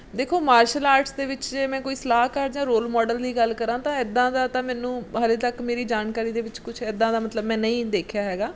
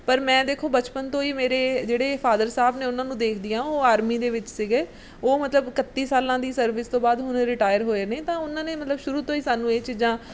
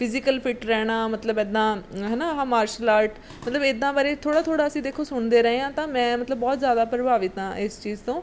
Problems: background sounds at intervals